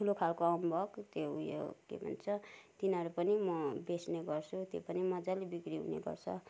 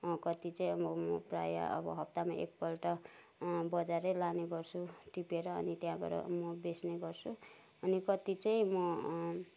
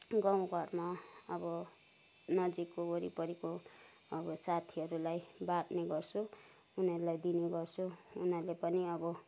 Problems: none marked